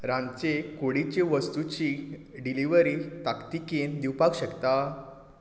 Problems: background sounds at intervals